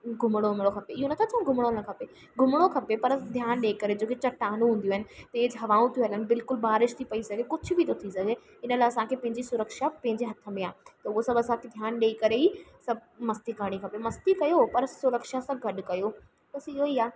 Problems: constant background noise